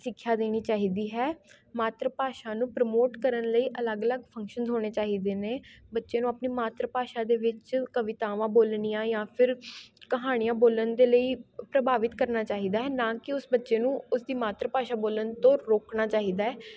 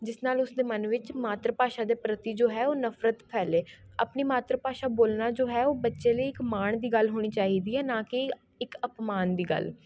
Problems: constant background noise, continuous background conversations